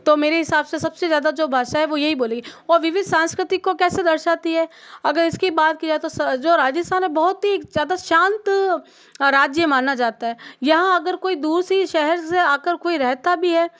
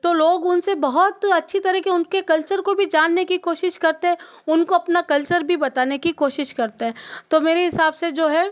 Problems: none marked